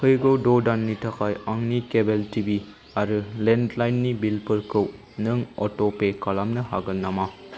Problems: constant background noise